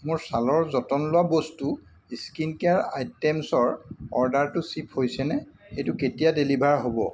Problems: background sounds at intervals